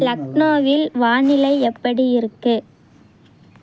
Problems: background conversations at intervals